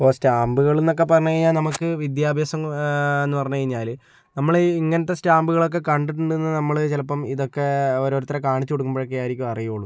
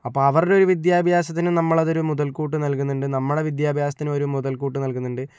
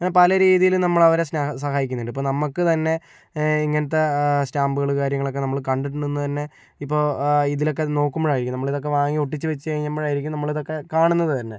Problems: none marked